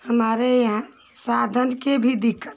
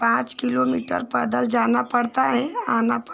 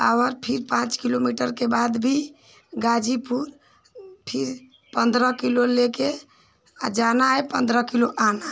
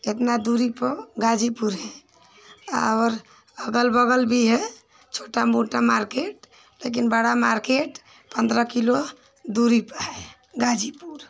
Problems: constant background noise